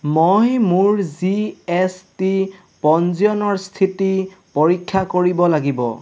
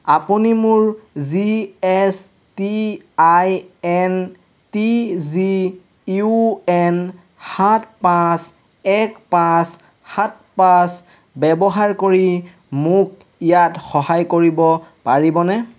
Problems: constant background noise